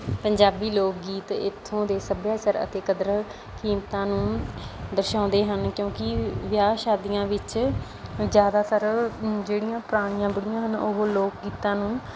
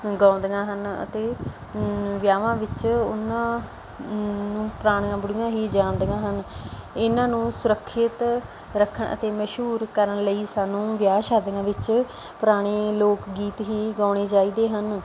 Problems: background conversations at intervals